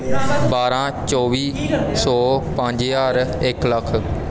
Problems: background conversations at intervals